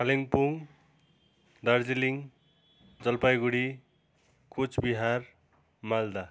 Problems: constant background noise